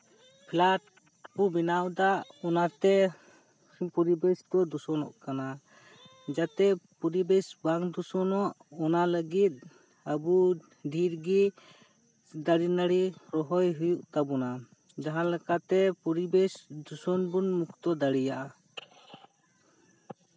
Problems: constant background noise, background conversations at intervals